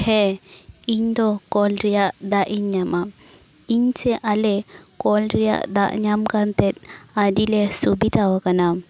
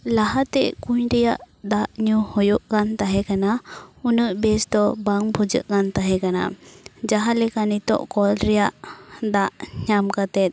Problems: background sounds at intervals